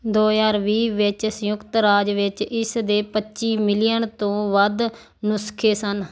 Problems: none marked